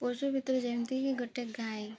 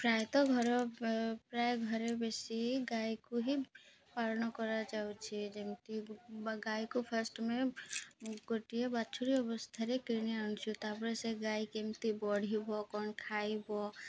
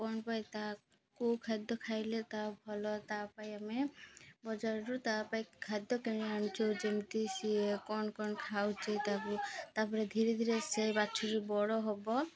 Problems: none marked